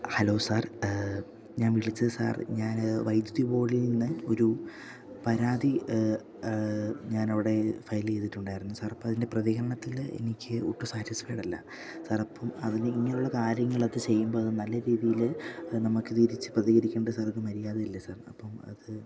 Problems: low volume